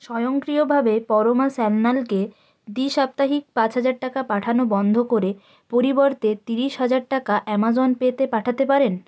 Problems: constant background noise